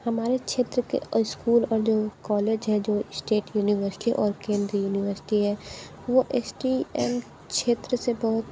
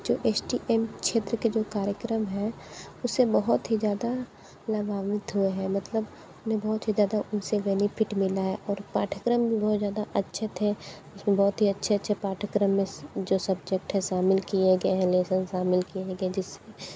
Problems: background sounds at intervals